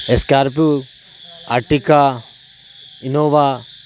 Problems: constant background noise